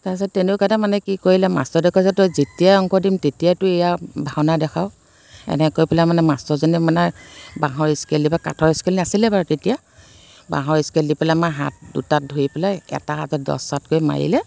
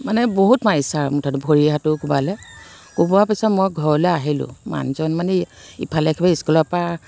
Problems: constant background noise